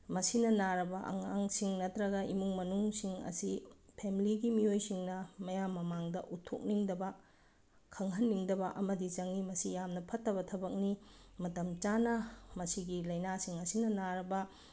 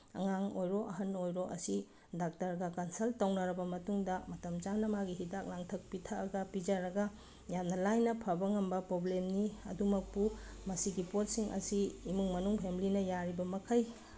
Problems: background sounds at intervals